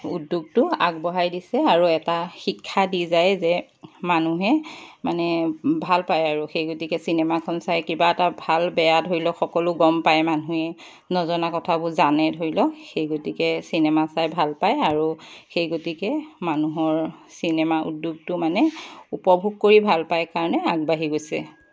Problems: none marked